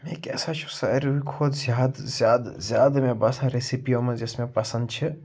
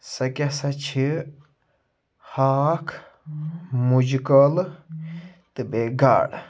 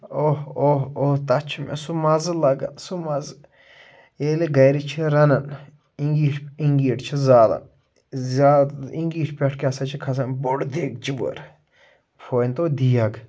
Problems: none marked